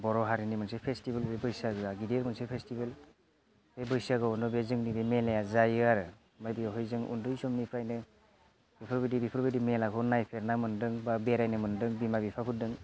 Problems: none marked